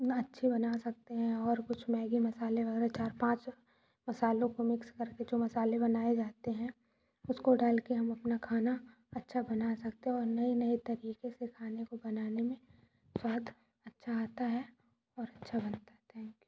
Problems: low volume